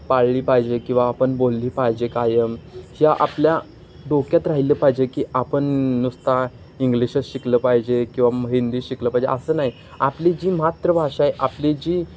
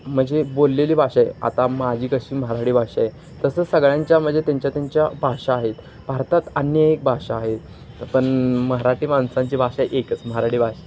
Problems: constant background noise, background conversations at intervals